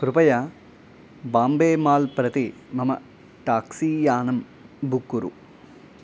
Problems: constant background noise